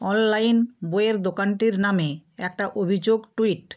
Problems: background sounds at intervals